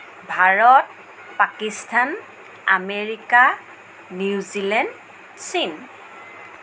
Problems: constant background noise